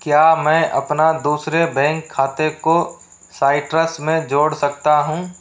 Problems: constant background noise